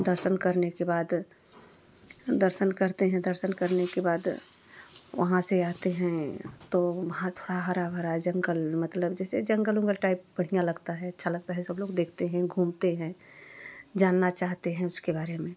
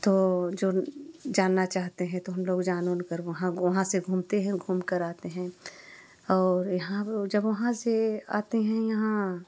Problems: none marked